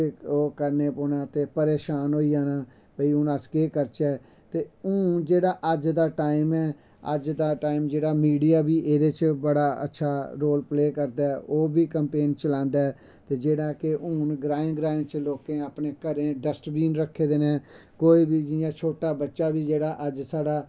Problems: background sounds at intervals